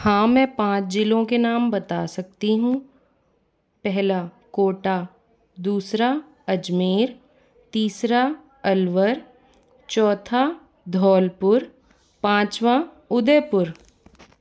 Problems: none marked